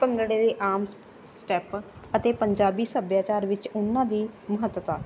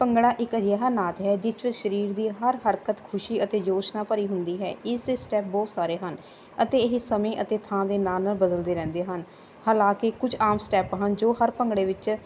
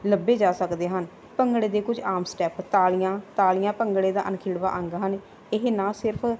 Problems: none marked